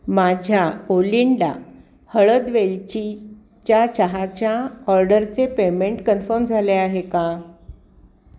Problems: none marked